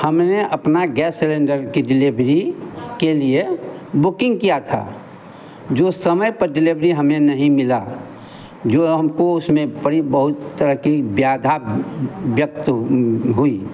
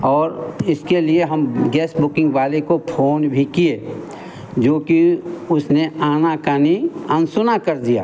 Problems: none marked